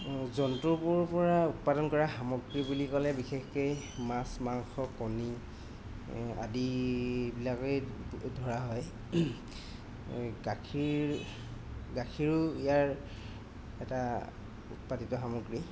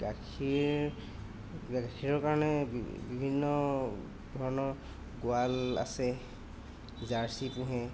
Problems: constant background noise